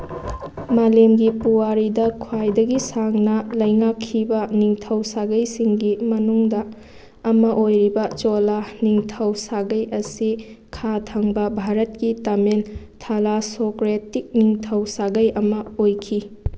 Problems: background sounds at intervals